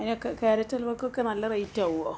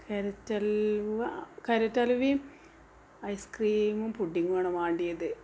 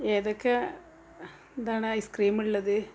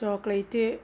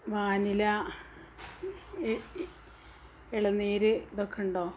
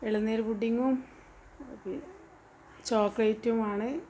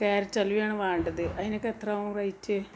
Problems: background sounds at intervals